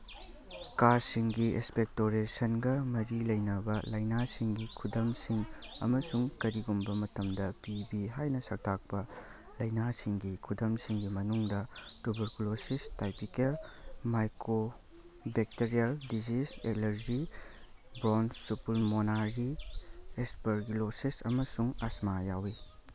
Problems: background sounds at intervals